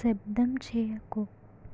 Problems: none marked